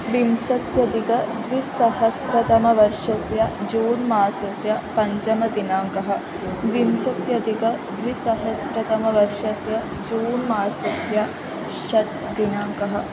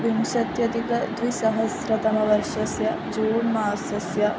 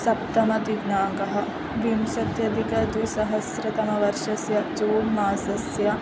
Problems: constant background noise